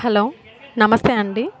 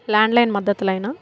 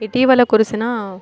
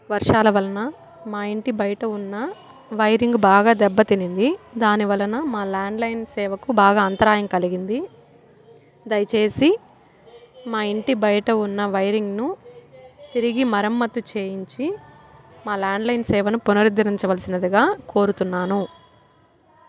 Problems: constant background noise, background conversations at intervals